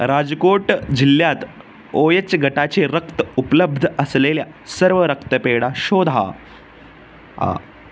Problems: constant background noise